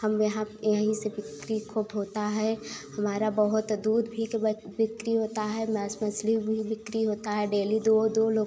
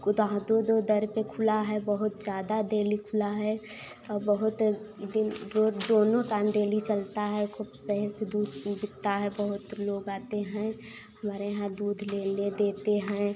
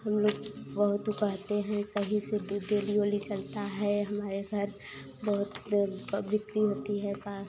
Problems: constant background noise